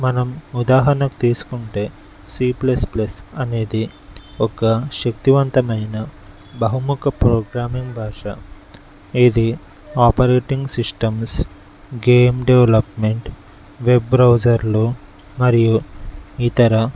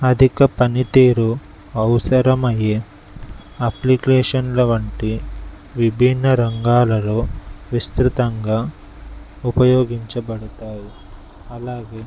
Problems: none marked